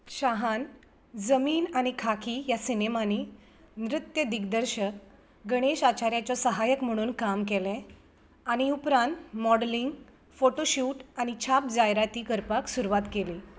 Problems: background sounds at intervals